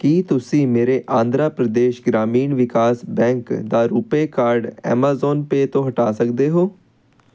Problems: constant background noise